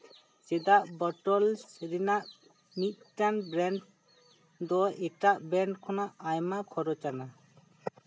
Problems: constant background noise